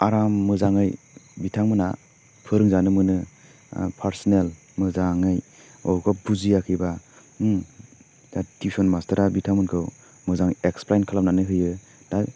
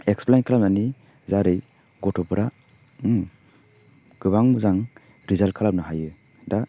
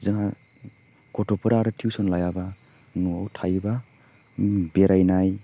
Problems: constant background noise